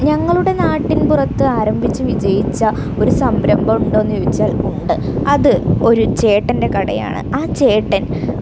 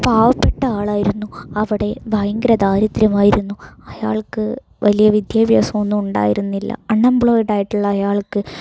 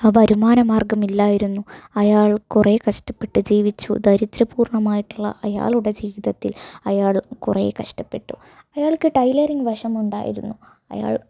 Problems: constant background noise